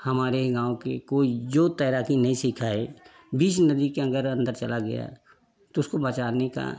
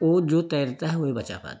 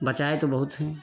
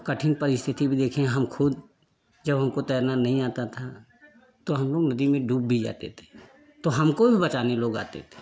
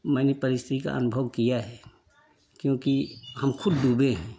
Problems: continuous background conversations